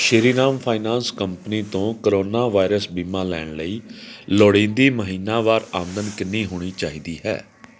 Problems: none marked